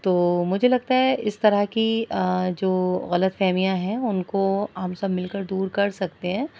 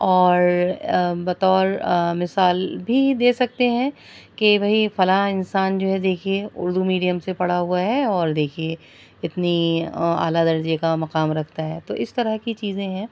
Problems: background sounds at intervals